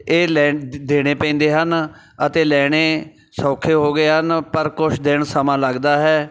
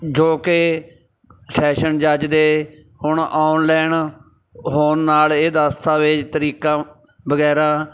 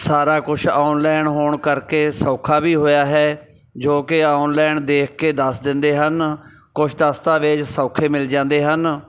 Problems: background sounds at intervals